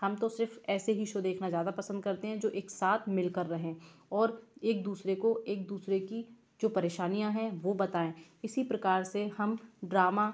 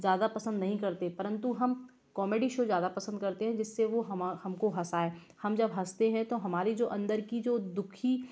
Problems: background sounds at intervals